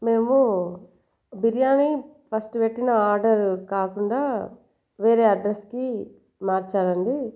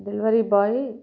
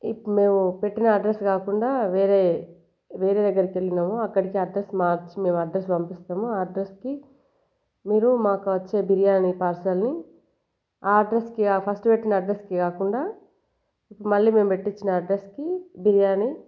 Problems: background sounds at intervals